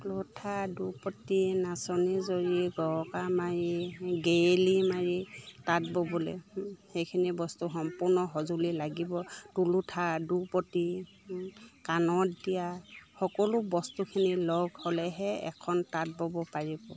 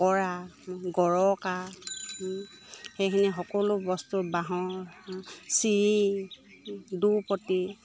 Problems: none marked